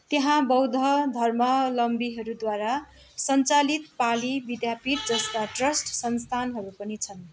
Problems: constant background noise